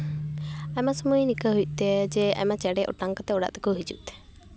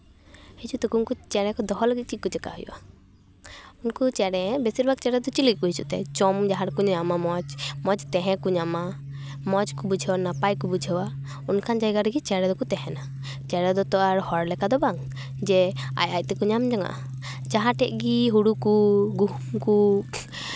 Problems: constant background noise, background conversations at intervals